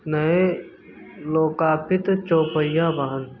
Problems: background sounds at intervals